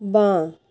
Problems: constant background noise